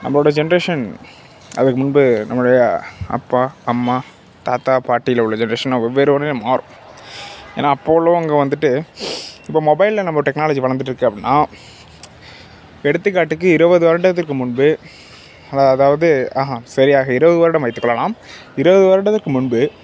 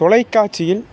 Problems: constant background noise